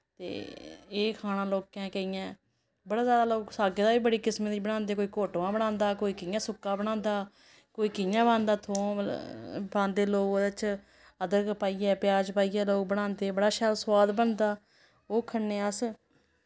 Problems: none marked